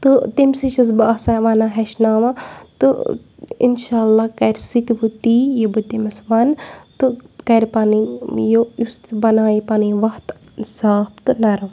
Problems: none marked